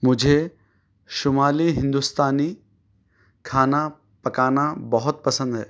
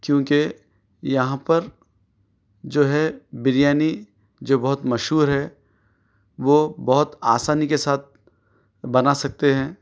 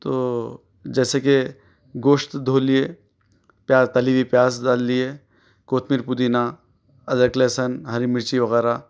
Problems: none marked